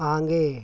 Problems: constant background noise